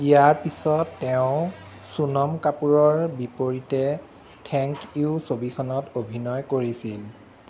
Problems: constant background noise